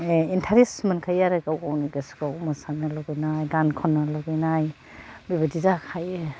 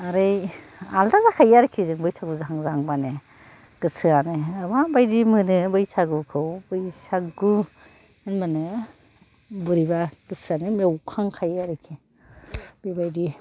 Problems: low volume